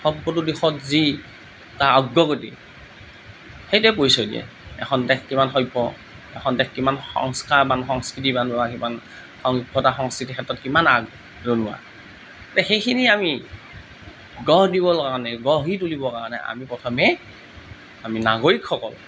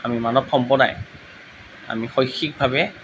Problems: none marked